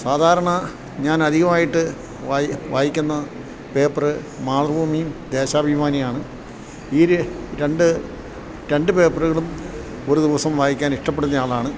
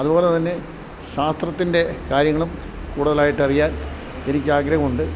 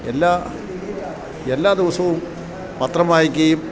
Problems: background sounds at intervals